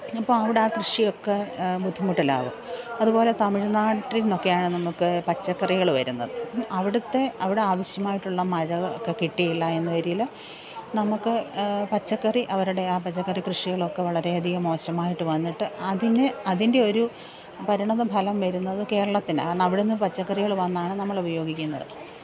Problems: background sounds at intervals, low volume